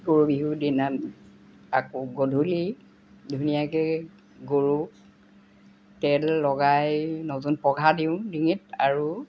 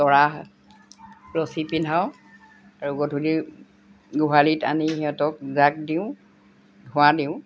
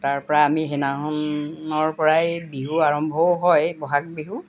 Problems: none marked